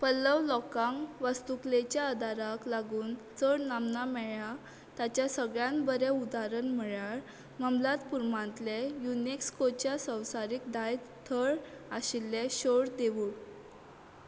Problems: none marked